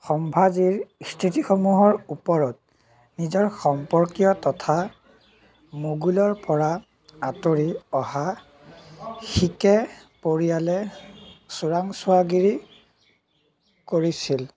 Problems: background conversations at intervals